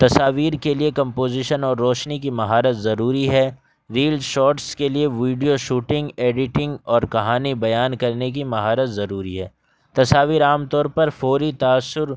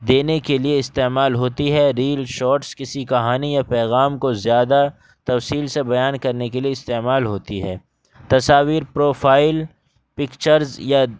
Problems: background sounds at intervals